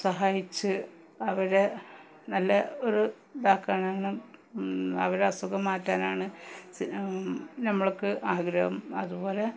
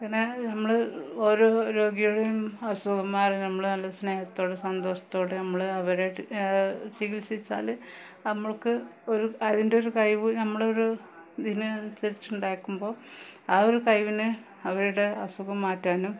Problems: none marked